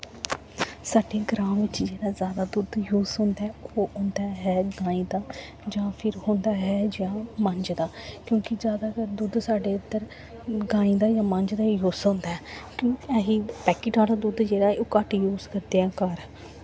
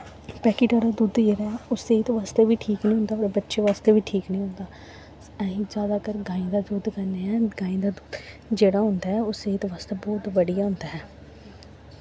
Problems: constant background noise